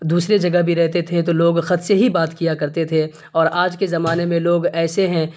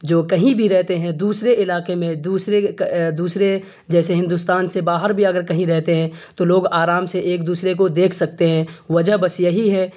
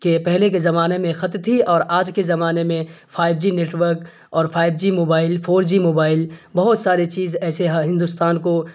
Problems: constant background noise